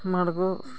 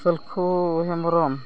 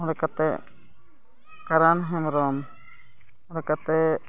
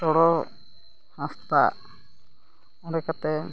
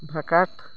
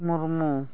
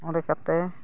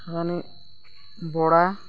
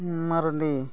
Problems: none marked